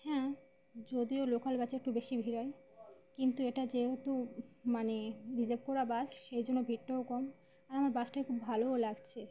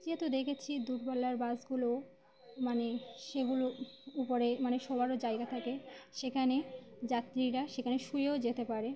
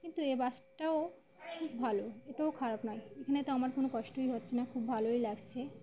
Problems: background sounds at intervals, background conversations at intervals